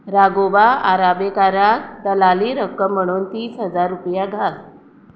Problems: constant background noise